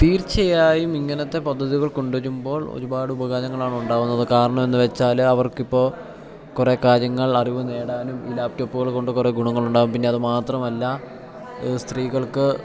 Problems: background conversations at intervals, low volume